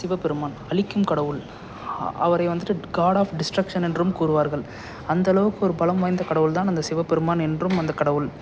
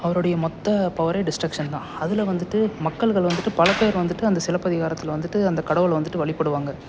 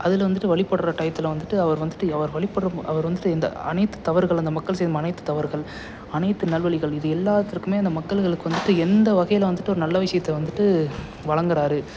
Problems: constant background noise, background conversations at intervals